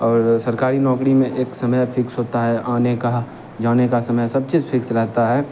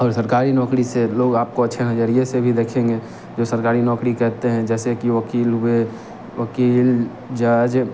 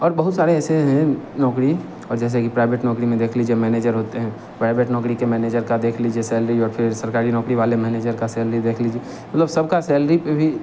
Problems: none marked